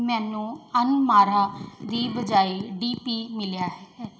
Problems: background sounds at intervals, background conversations at intervals